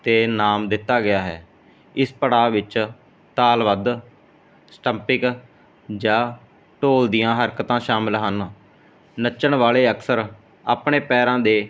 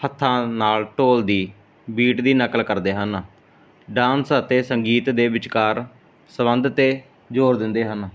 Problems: background sounds at intervals